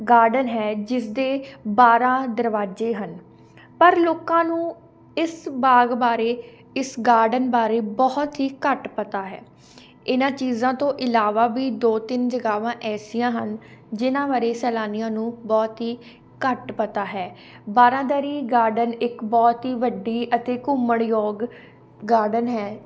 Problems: constant background noise